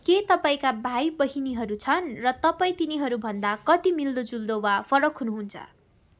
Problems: background conversations at intervals